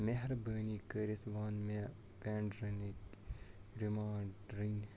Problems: background sounds at intervals, low volume